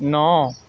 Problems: constant background noise